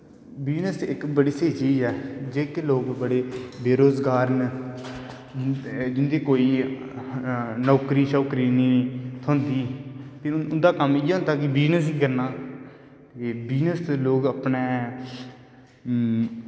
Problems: background sounds at intervals, echo